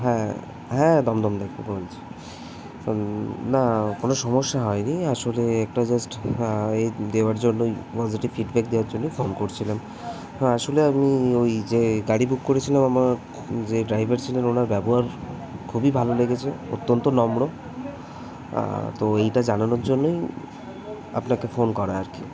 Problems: constant background noise, background conversations at intervals